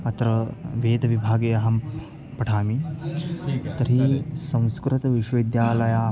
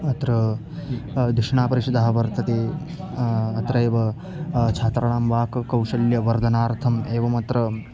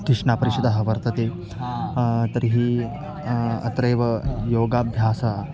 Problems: constant background noise, continuous background conversations